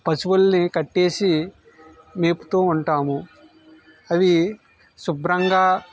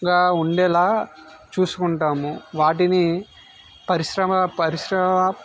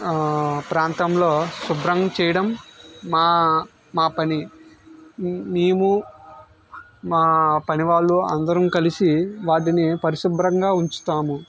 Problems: background sounds at intervals